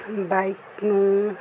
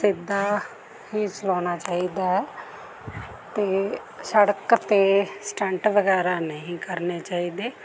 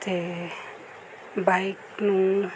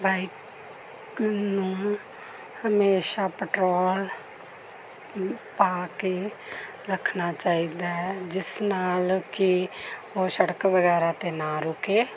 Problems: background conversations at intervals